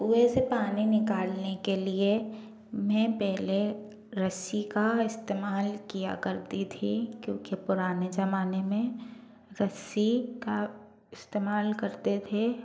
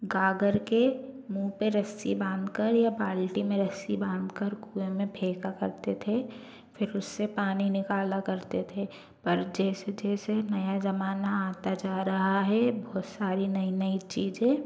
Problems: low volume